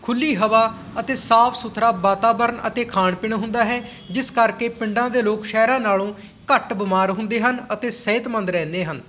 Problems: background sounds at intervals